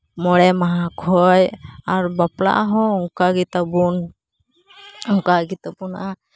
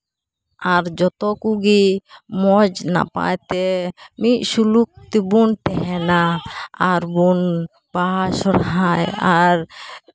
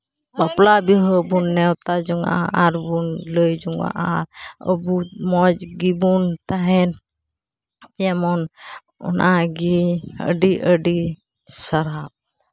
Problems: constant background noise